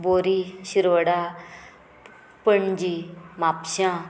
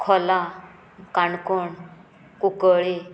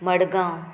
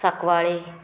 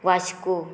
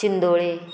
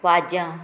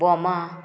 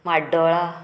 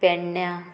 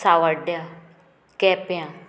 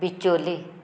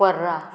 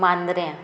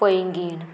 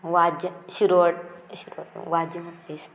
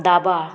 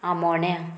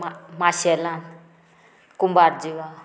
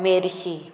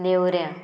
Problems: background sounds at intervals